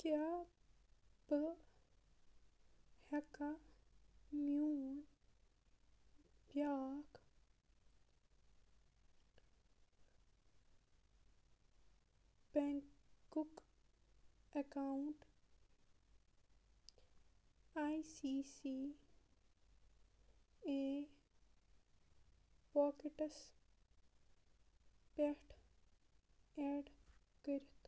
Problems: background sounds at intervals, low volume